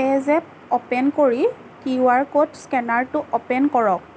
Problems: constant background noise